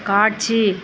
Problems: constant background noise